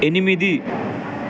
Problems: constant background noise